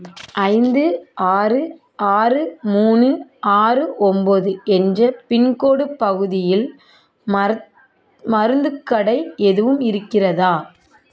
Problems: background conversations at intervals